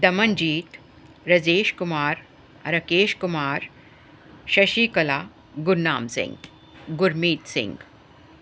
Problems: none marked